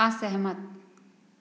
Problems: low volume